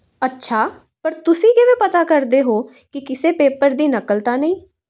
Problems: constant background noise